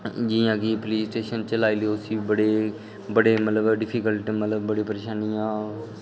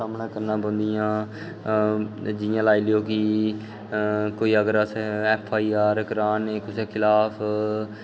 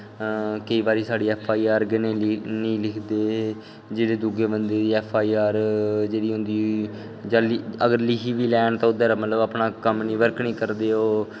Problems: background sounds at intervals